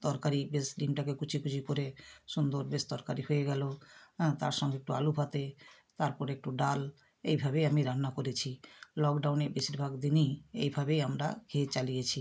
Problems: constant background noise